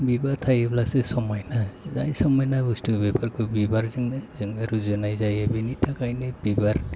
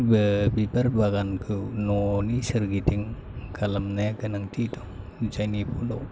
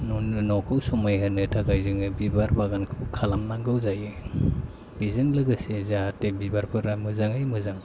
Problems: constant background noise